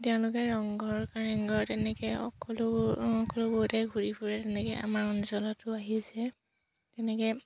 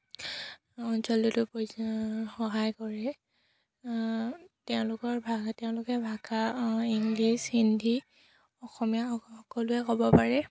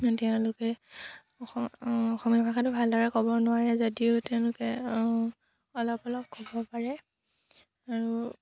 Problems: none marked